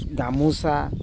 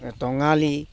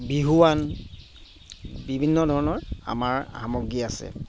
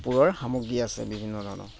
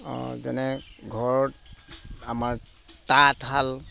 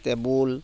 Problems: constant background noise